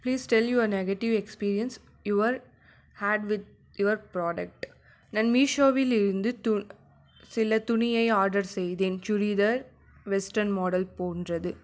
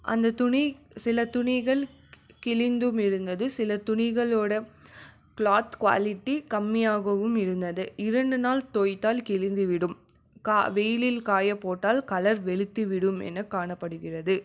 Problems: none marked